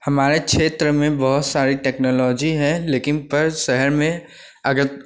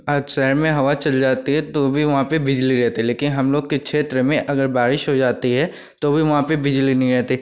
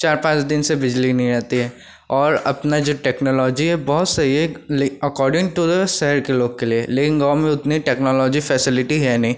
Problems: constant background noise